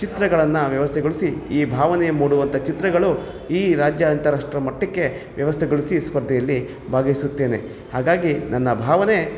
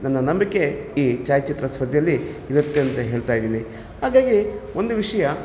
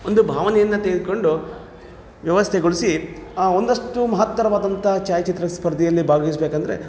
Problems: background sounds at intervals